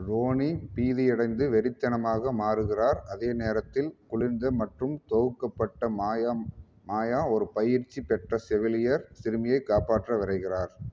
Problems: none marked